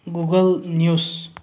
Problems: low volume